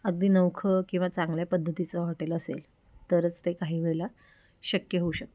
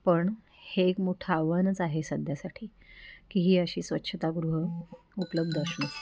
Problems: background sounds at intervals, low volume